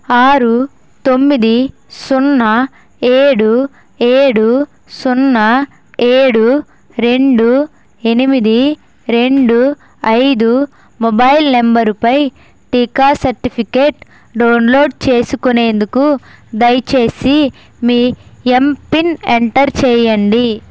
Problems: constant background noise